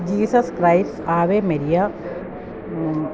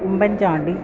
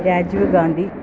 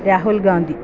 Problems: none marked